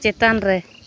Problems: none marked